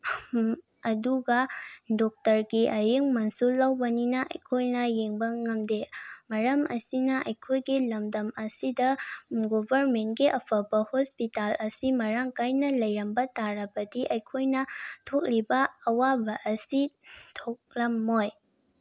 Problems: background sounds at intervals